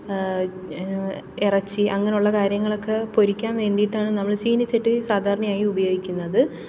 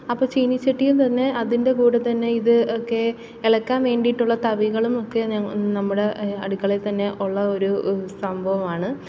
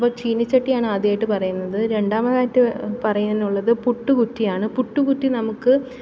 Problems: background sounds at intervals